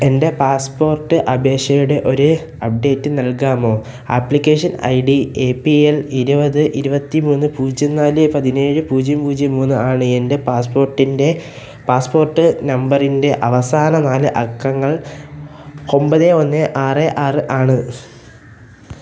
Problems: background sounds at intervals